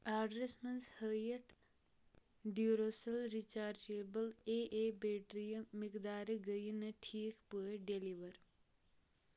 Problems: low volume